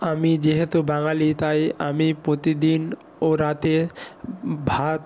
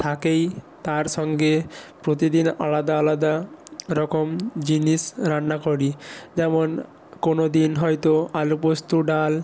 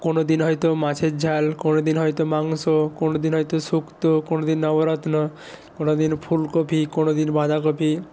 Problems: none marked